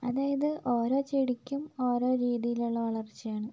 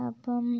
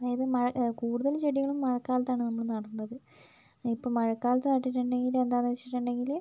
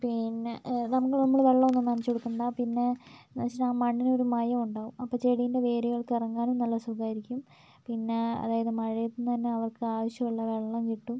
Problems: low volume